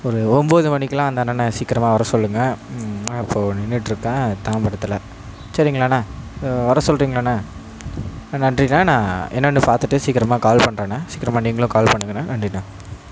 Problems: background sounds at intervals